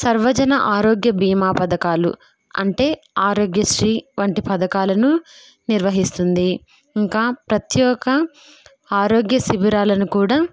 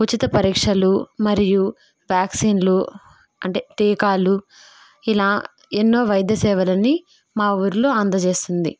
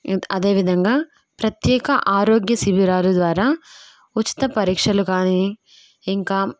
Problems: none marked